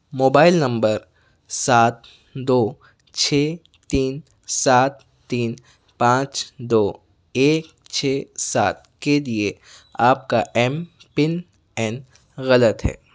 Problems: none marked